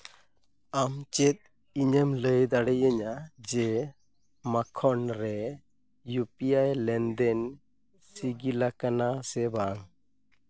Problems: none marked